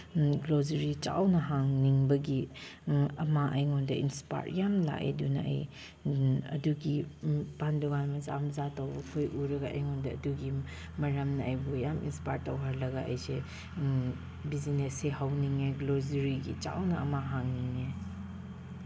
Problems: background sounds at intervals